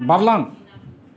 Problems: none marked